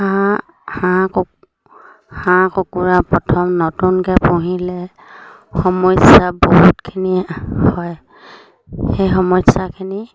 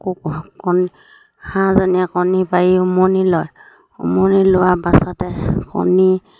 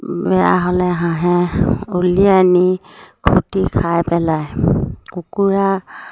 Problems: low volume